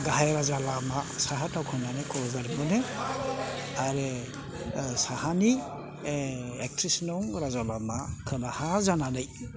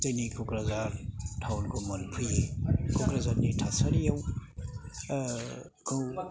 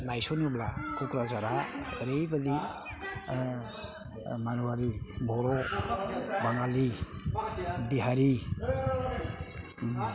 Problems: background sounds at intervals